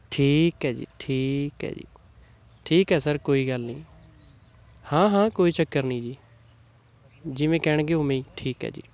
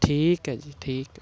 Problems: constant background noise